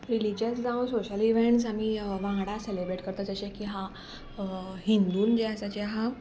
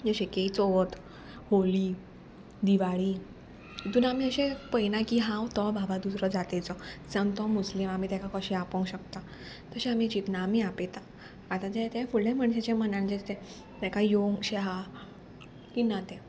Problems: constant background noise